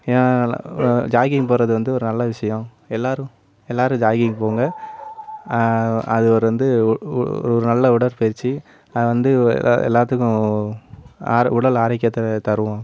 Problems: background sounds at intervals